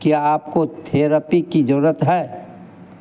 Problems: constant background noise